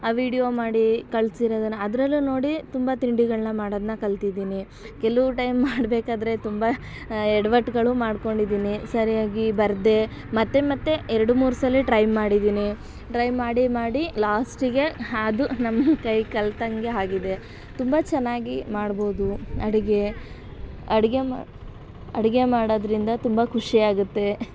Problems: none marked